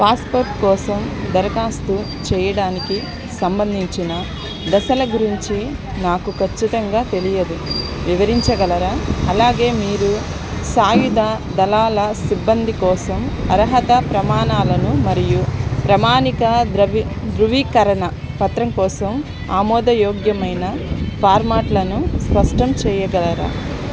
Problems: background sounds at intervals, background conversations at intervals